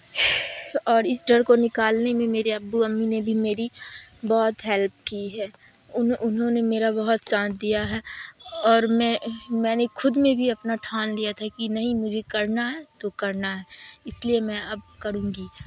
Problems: background sounds at intervals, background conversations at intervals